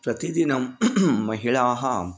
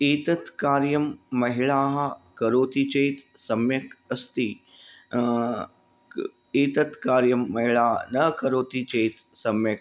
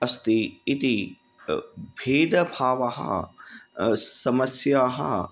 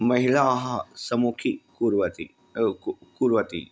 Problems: none marked